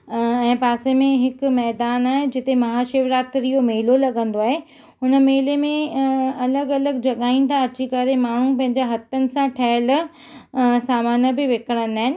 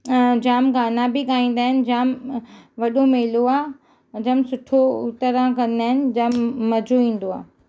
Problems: none marked